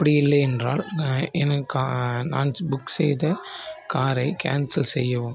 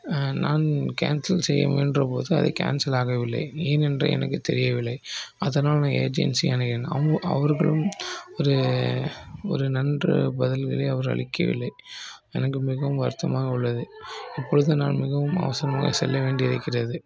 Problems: low volume